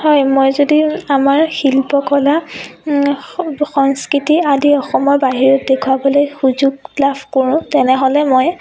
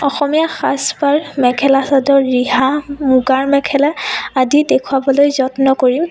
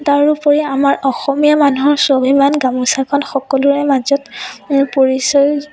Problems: background sounds at intervals, continuous background conversations